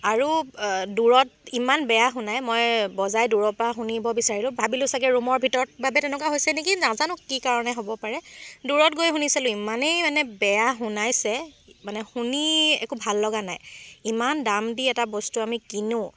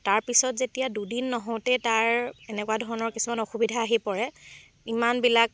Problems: constant background noise